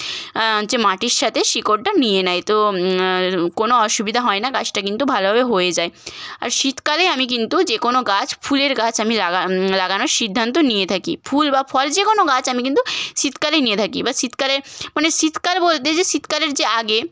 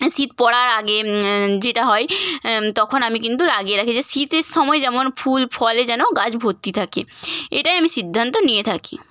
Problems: none marked